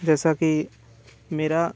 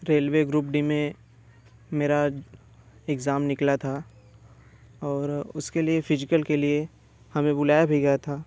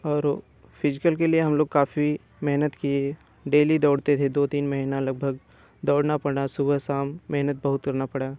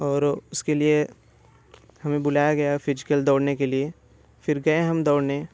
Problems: none marked